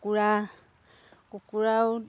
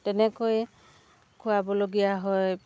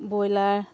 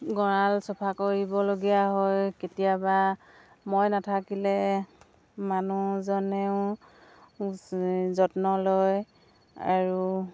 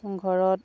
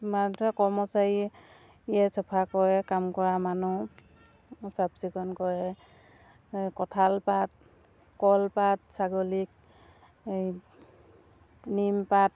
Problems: background sounds at intervals